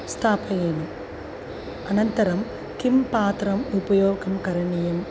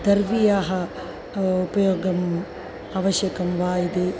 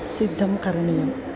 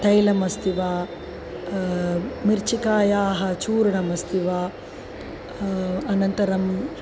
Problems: constant background noise, continuous background conversations